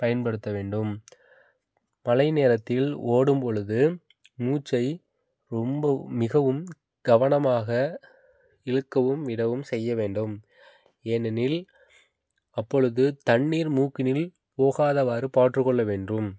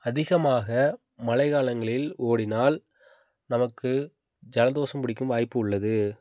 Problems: background sounds at intervals